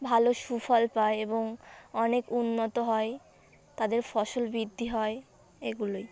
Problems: constant background noise, background conversations at intervals